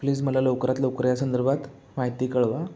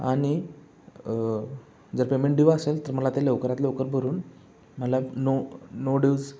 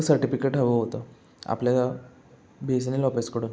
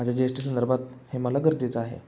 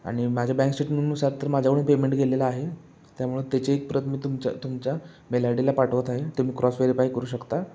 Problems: constant background noise, background conversations at intervals